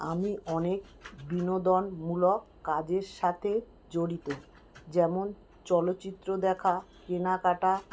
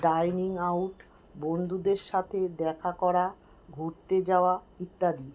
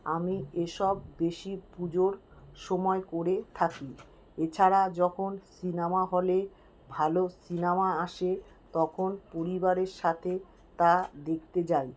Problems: constant background noise